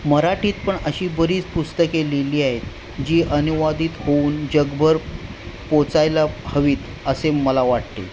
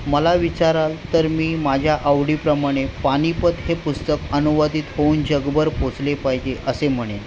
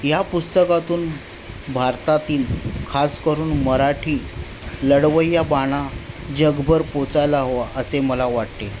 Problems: constant background noise, background conversations at intervals